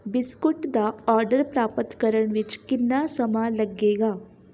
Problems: background sounds at intervals